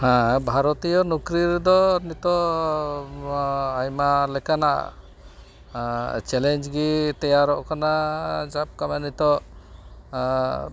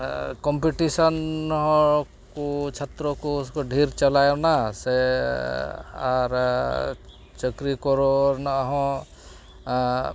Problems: none marked